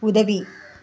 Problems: background conversations at intervals